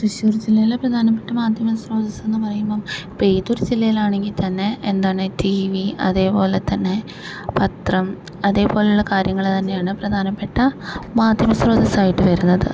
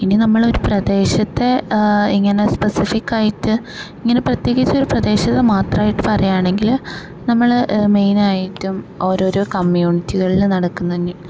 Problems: none marked